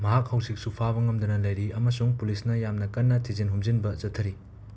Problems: none marked